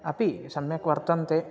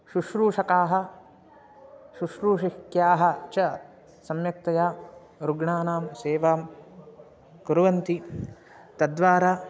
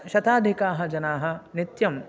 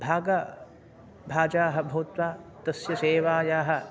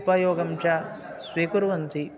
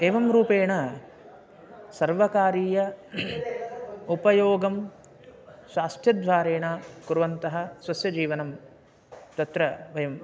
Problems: none marked